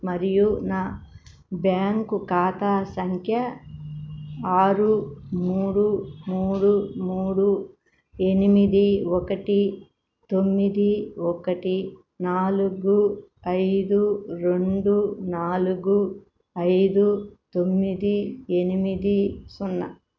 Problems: none marked